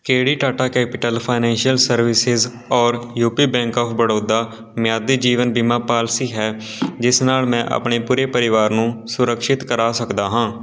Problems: background sounds at intervals, continuous background conversations